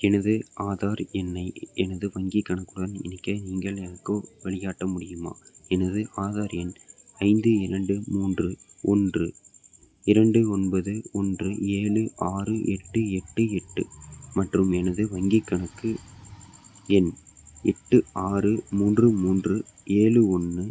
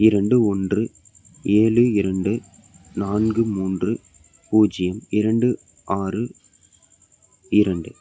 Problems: background sounds at intervals